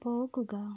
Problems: low volume